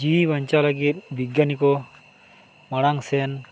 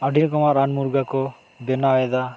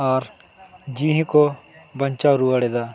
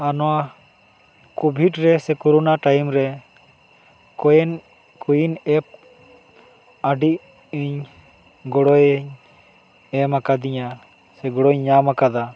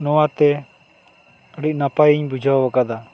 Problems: none marked